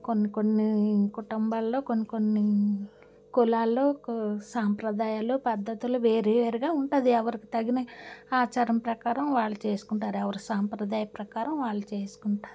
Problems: background sounds at intervals